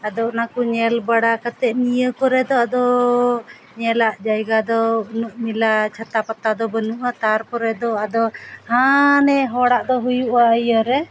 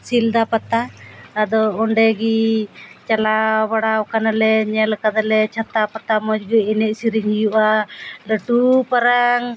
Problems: none marked